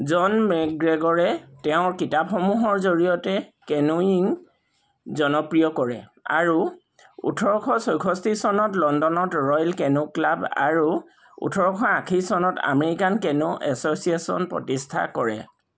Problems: none marked